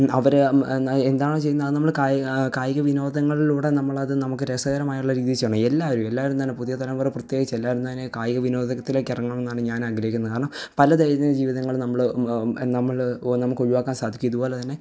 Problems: none marked